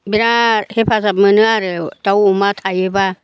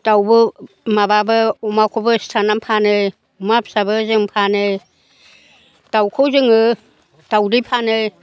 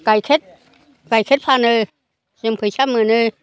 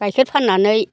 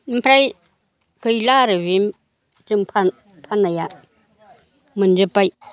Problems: low volume